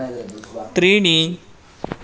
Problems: none marked